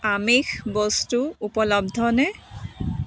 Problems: constant background noise, background conversations at intervals